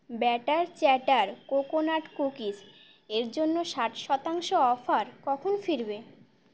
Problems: none marked